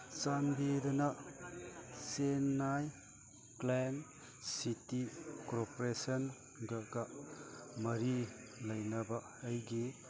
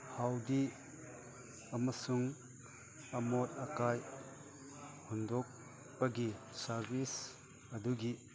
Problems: background sounds at intervals, background conversations at intervals